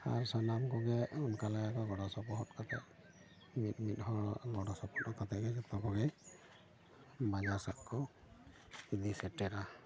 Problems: background sounds at intervals, continuous background conversations